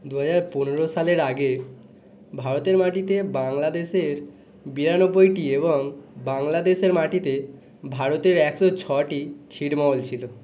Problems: none marked